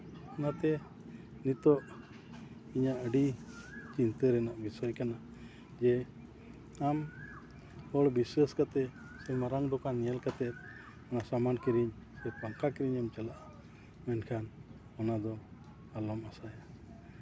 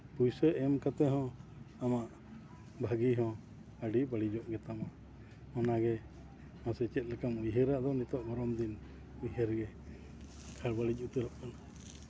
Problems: constant background noise, continuous background conversations